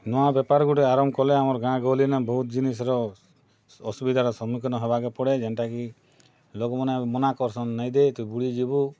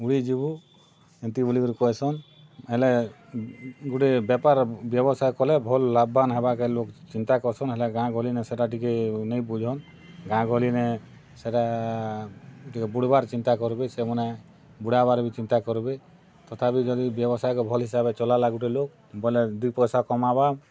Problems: background sounds at intervals